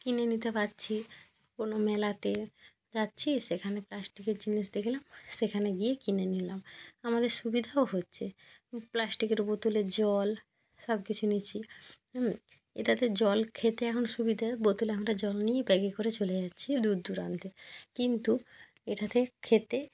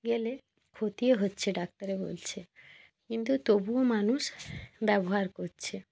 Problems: background sounds at intervals